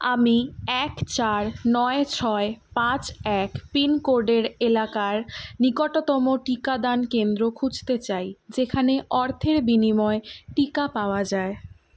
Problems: none marked